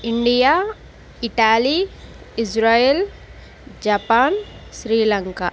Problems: constant background noise